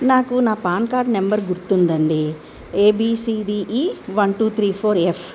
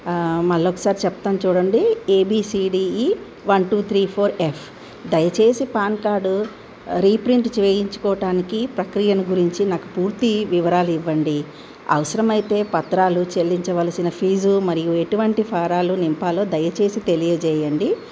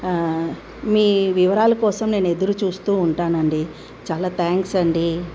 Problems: none marked